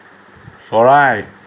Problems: none marked